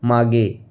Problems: none marked